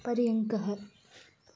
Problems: none marked